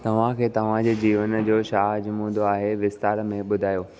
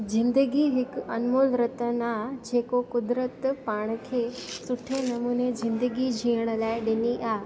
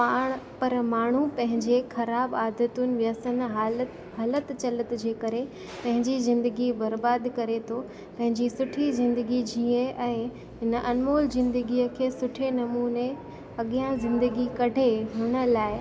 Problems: constant background noise